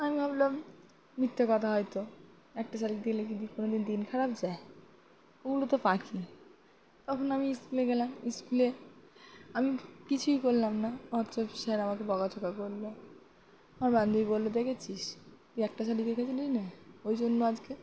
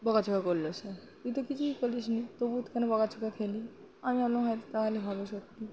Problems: constant background noise